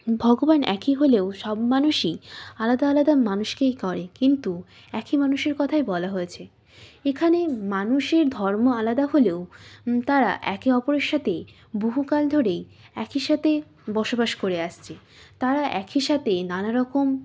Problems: none marked